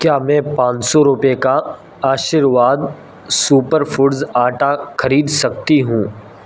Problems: constant background noise